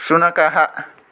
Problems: none marked